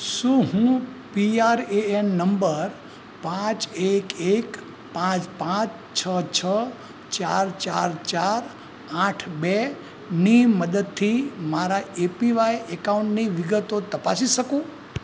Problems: constant background noise